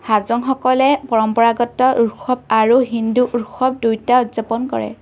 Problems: none marked